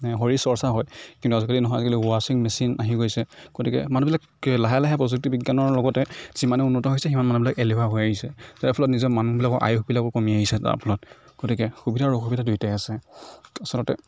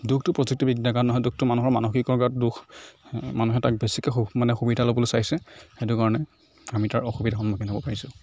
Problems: none marked